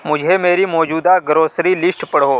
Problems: none marked